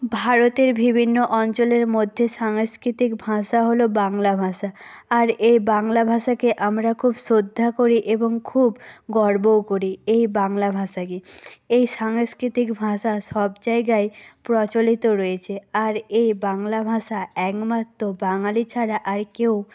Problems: none marked